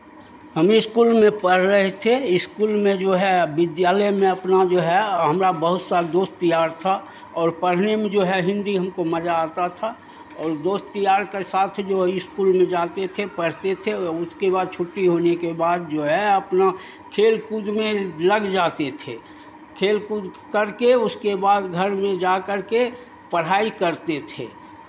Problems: none marked